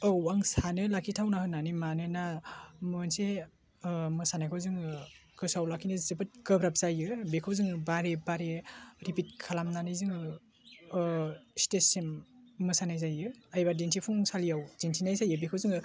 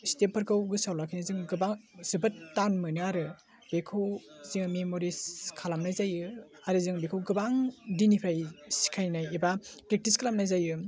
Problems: low volume